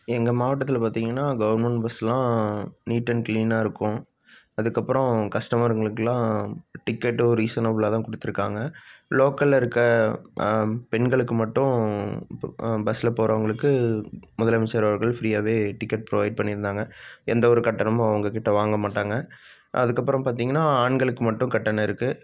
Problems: none marked